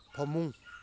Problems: low volume